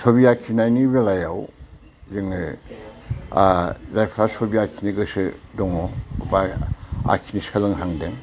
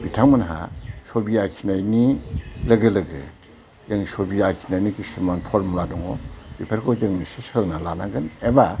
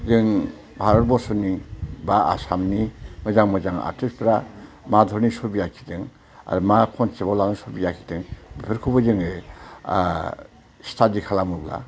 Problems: constant background noise